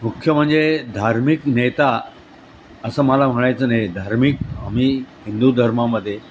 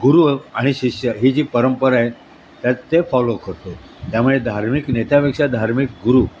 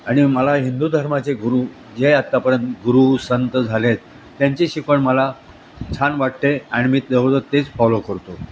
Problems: constant background noise